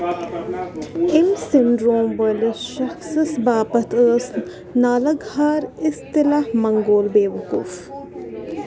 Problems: constant background noise, continuous background conversations